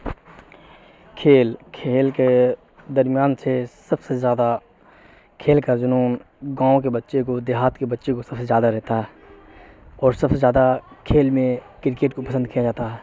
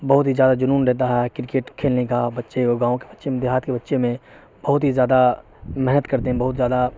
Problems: constant background noise